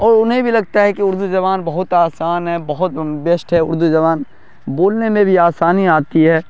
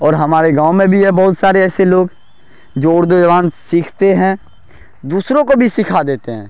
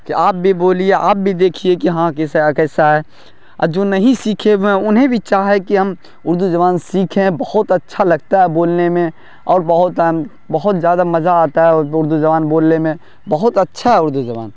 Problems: none marked